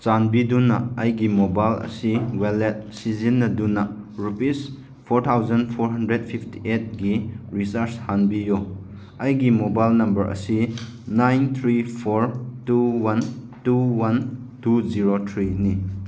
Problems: none marked